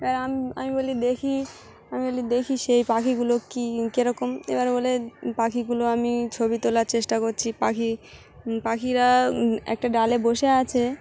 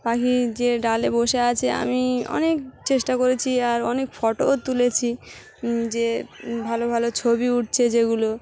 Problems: none marked